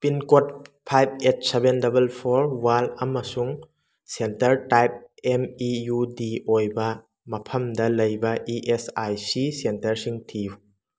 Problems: none marked